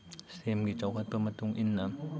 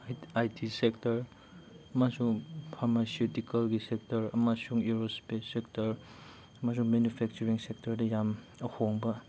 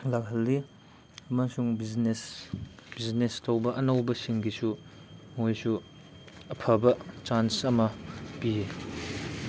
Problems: constant background noise